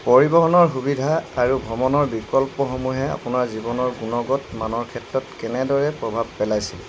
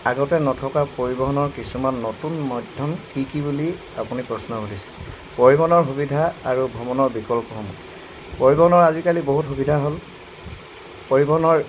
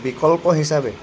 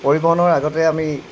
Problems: constant background noise